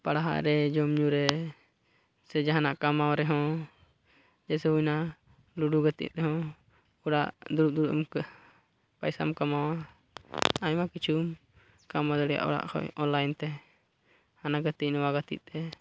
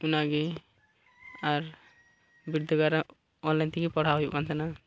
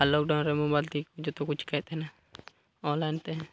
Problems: background sounds at intervals, low volume